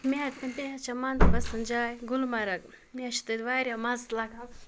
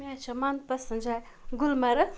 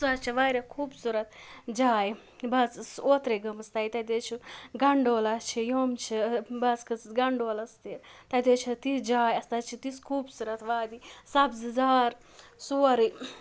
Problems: background sounds at intervals